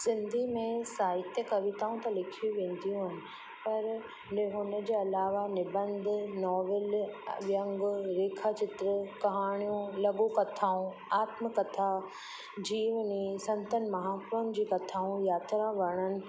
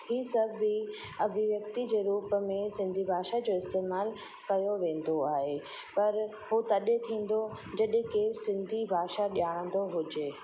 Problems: constant background noise, echo